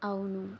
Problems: low volume